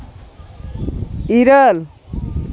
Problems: none marked